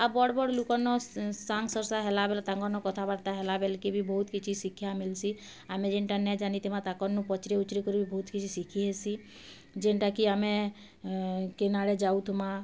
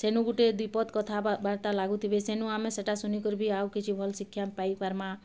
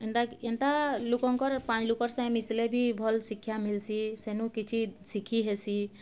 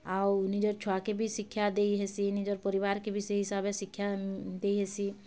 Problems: none marked